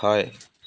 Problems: constant background noise